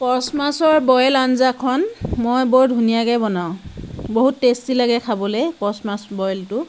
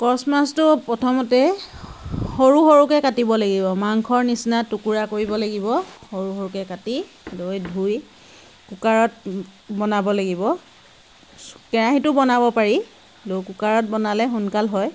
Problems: constant background noise